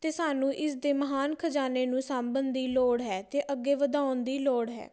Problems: background sounds at intervals